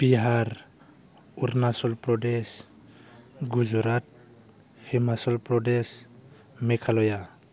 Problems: none marked